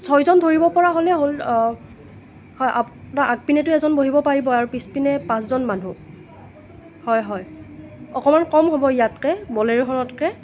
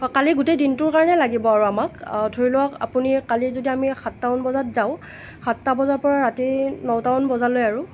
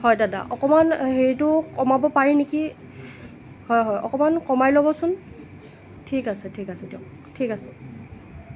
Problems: none marked